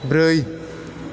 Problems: none marked